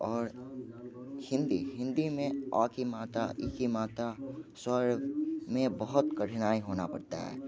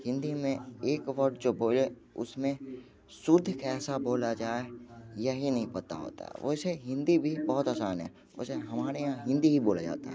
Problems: background conversations at intervals